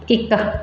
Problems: none marked